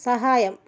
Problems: none marked